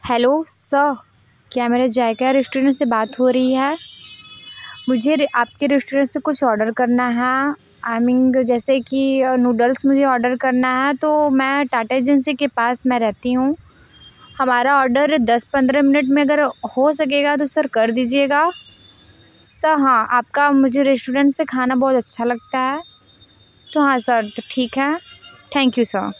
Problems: background sounds at intervals